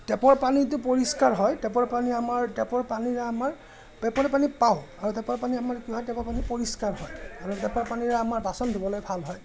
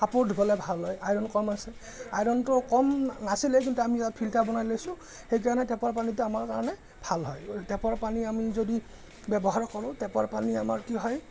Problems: none marked